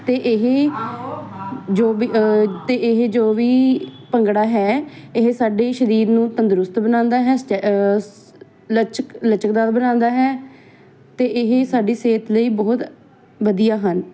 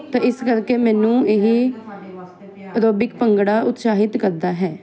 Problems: continuous background conversations